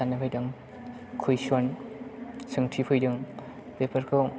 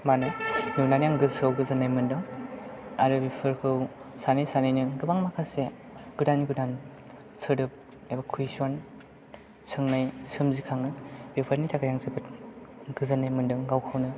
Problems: background sounds at intervals, background conversations at intervals